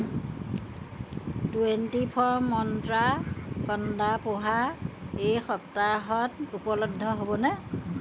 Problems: none marked